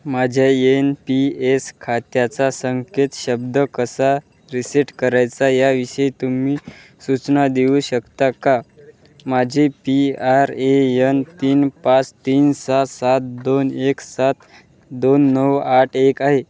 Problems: none marked